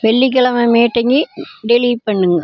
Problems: constant background noise